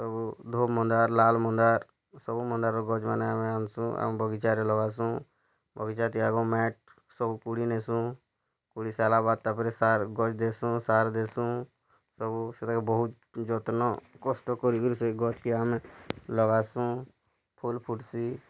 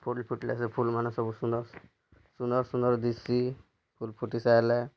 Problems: low volume